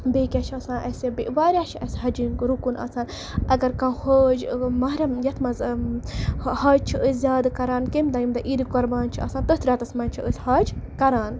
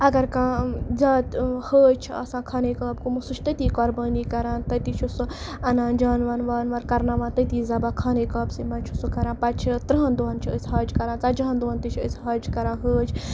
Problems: none marked